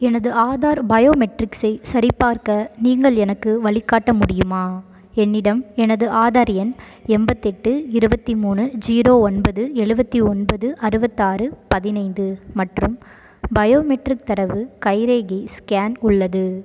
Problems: background sounds at intervals